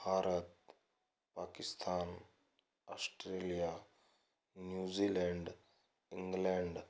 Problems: low volume